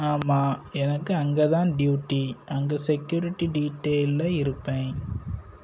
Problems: constant background noise